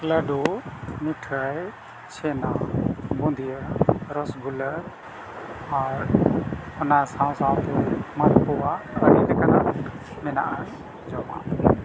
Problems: constant background noise